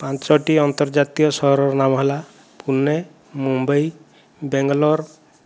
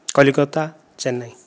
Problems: none marked